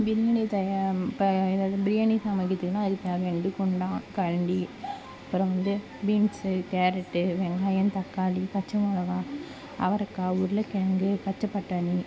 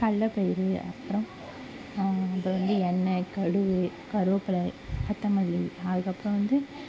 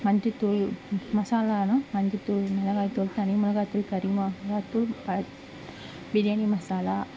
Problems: constant background noise